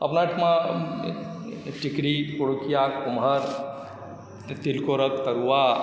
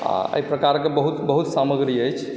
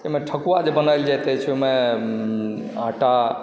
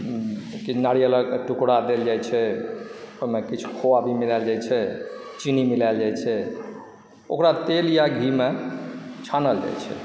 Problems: background sounds at intervals